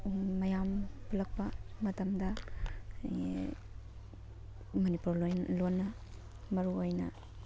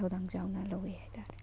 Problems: background sounds at intervals, background conversations at intervals